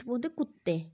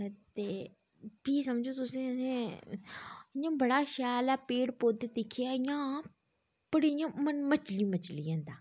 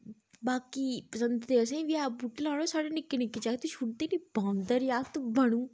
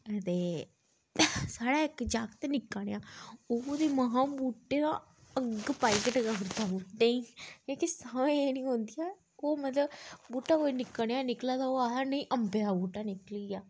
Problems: none marked